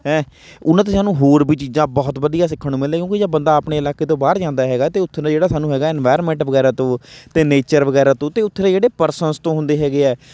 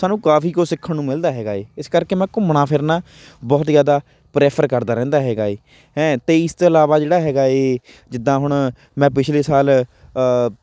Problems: none marked